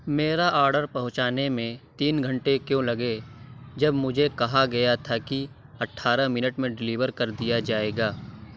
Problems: none marked